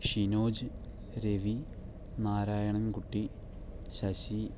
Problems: low volume